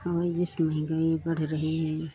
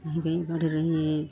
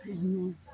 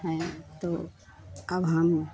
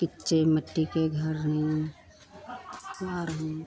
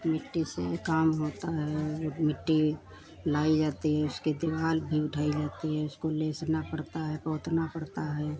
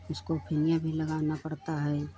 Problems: none marked